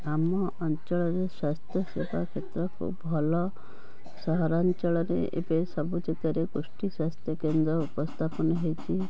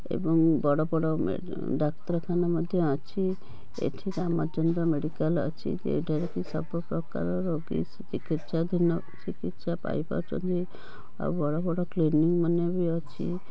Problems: constant background noise, background conversations at intervals